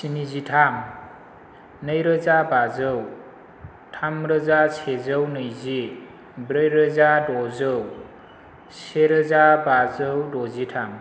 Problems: background sounds at intervals